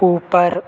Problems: constant background noise, echo